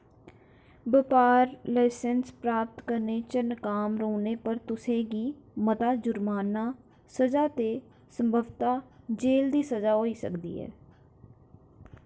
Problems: constant background noise